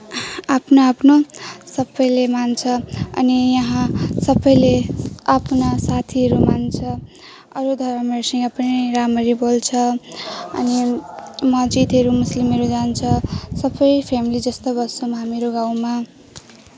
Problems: none marked